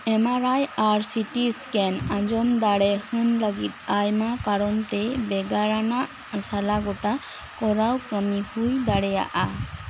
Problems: constant background noise